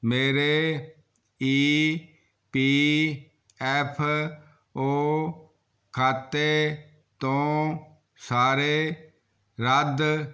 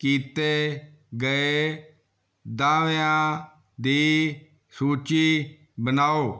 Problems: none marked